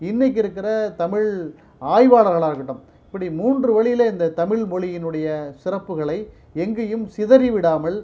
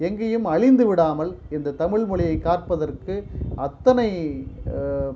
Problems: low volume